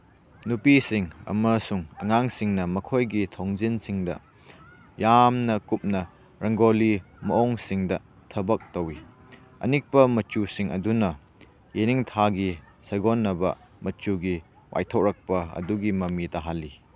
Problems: background sounds at intervals